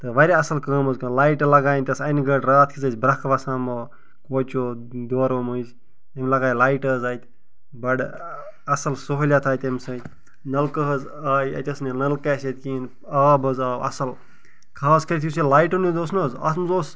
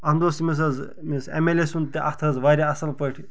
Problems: none marked